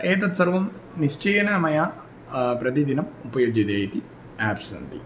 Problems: none marked